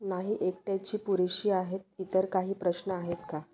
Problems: constant background noise